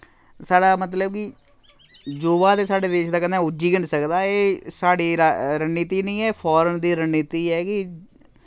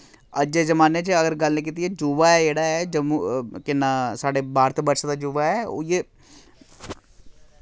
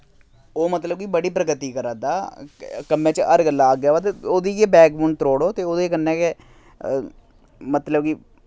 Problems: none marked